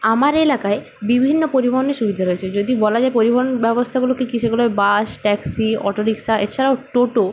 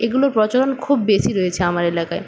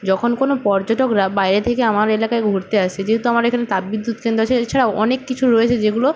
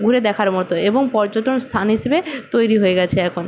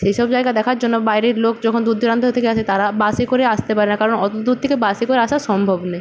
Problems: constant background noise, background conversations at intervals